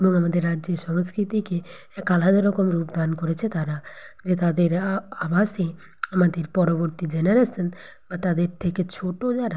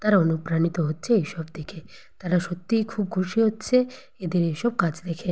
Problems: constant background noise